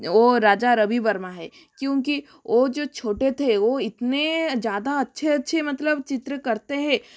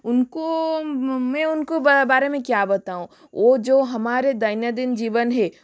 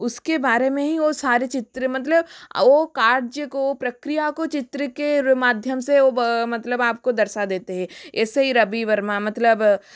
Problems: background sounds at intervals